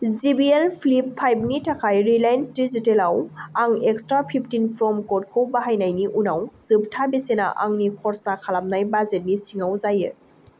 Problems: none marked